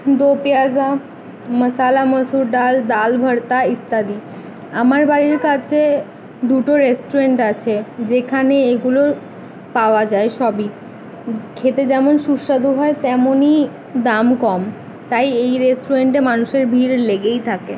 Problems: background sounds at intervals, background conversations at intervals